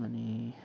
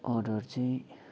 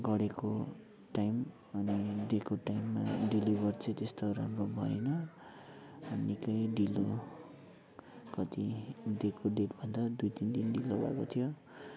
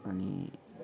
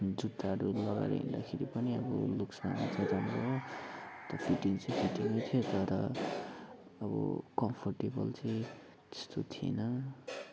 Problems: none marked